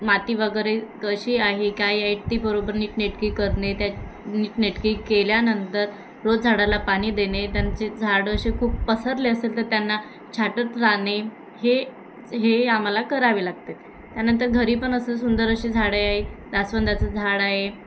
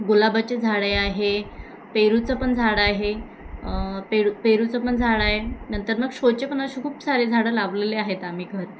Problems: constant background noise, continuous background conversations